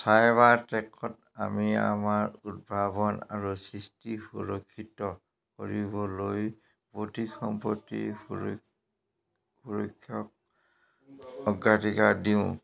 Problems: constant background noise